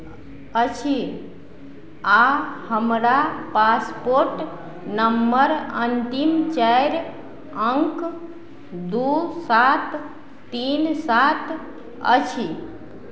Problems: none marked